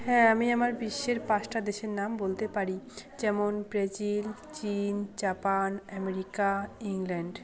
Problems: none marked